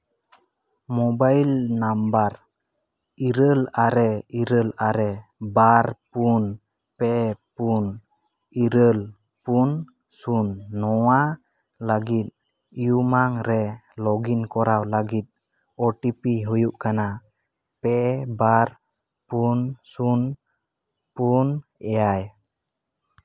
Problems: background sounds at intervals, echo